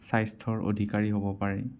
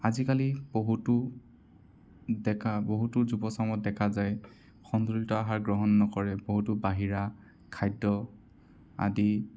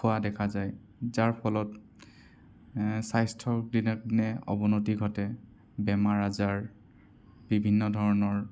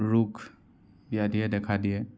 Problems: none marked